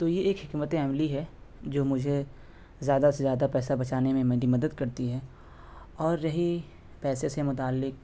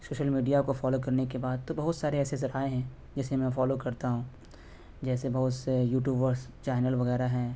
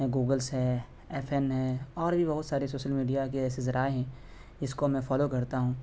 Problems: constant background noise